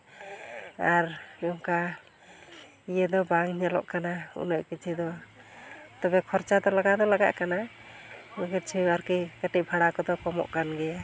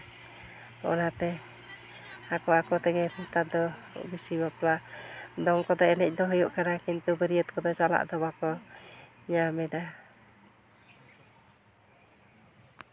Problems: none marked